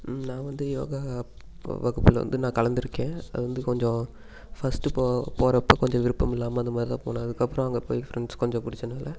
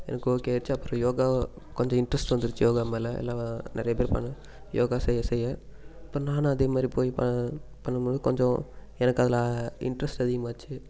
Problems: constant background noise